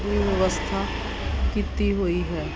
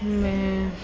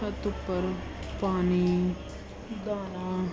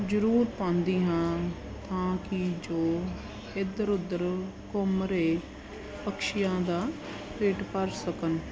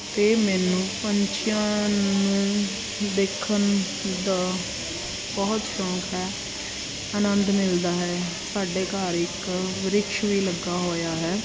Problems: background sounds at intervals